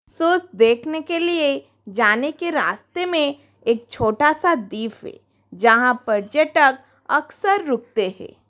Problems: constant background noise, background conversations at intervals